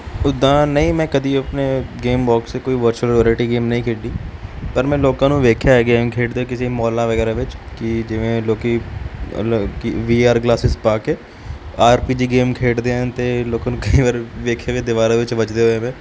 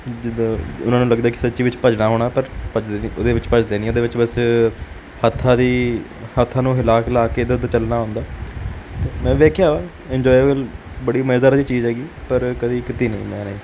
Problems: none marked